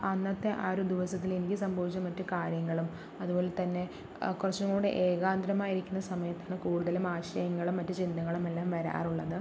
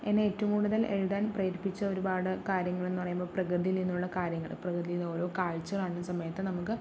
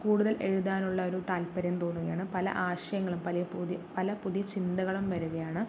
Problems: low volume